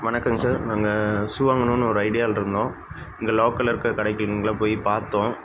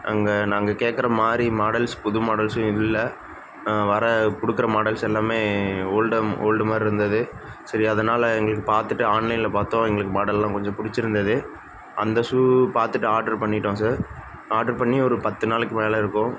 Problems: constant background noise